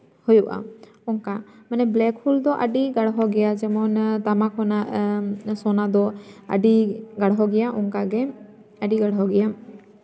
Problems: constant background noise, continuous background conversations, echo